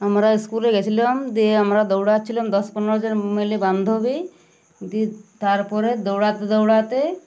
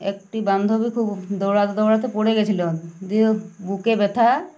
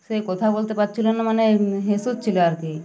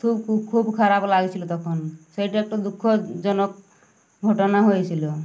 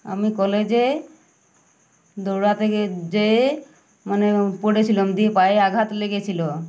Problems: none marked